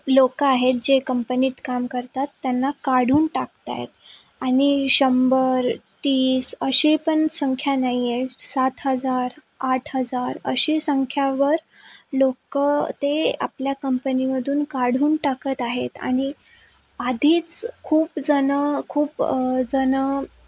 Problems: constant background noise